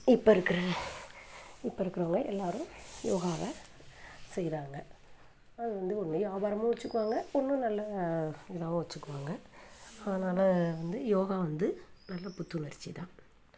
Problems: background sounds at intervals